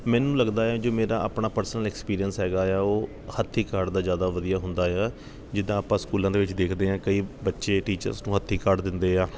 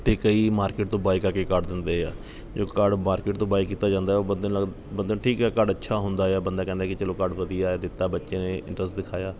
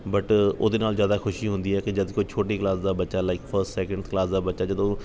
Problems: background sounds at intervals